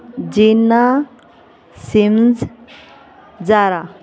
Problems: none marked